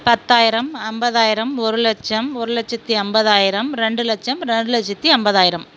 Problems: none marked